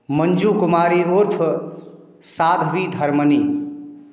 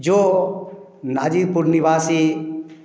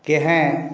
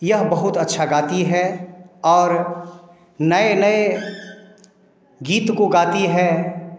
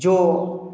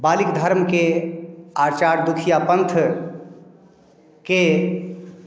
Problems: background sounds at intervals